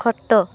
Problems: none marked